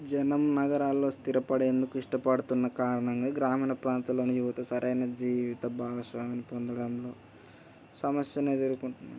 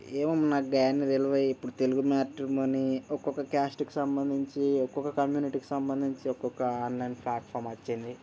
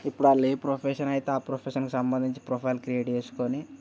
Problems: background sounds at intervals